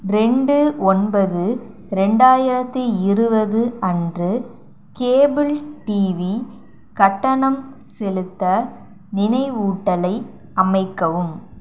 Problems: none marked